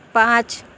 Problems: constant background noise